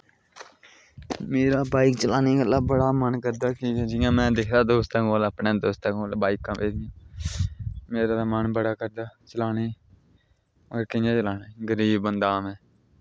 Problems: low volume